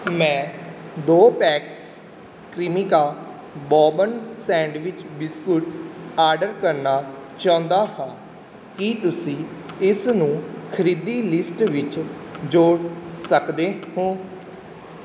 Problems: background sounds at intervals